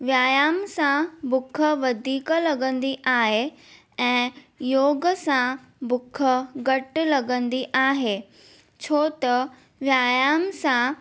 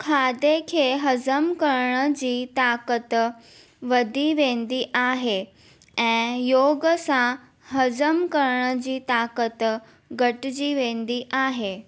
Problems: none marked